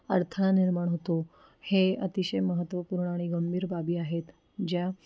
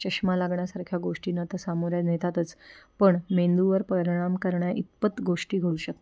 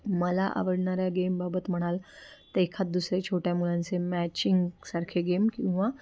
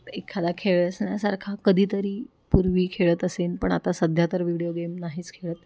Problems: none marked